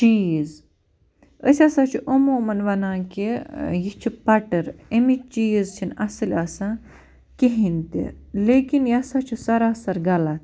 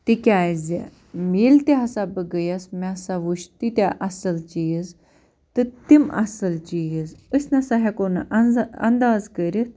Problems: constant background noise